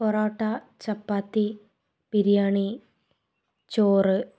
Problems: none marked